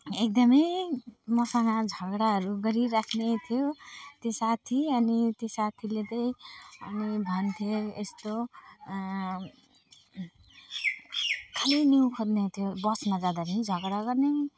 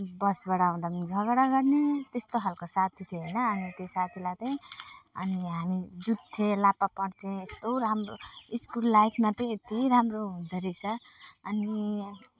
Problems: constant background noise, background conversations at intervals, low volume